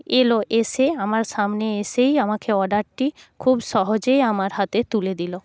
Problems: background sounds at intervals